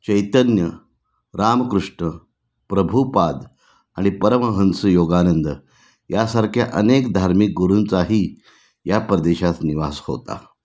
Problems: none marked